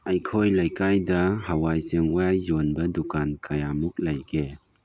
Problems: low volume